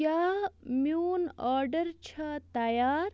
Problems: constant background noise